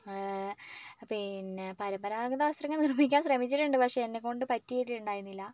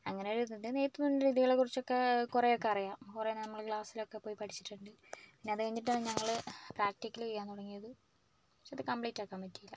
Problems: low volume